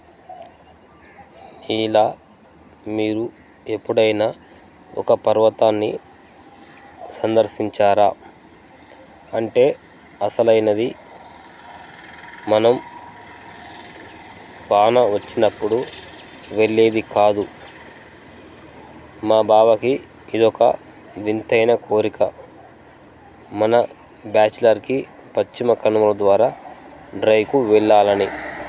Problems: background sounds at intervals